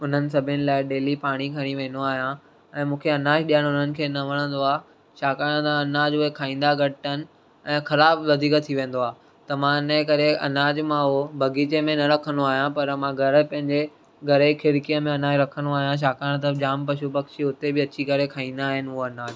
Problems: none marked